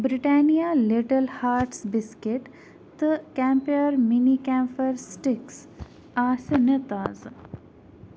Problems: none marked